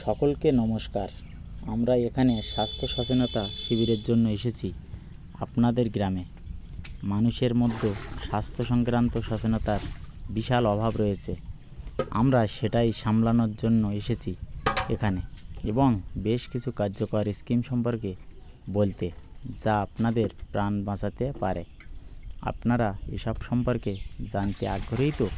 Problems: constant background noise